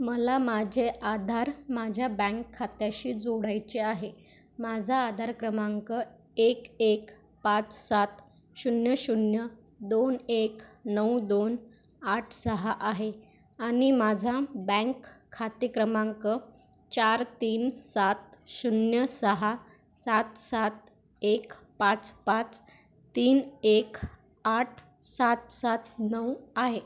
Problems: constant background noise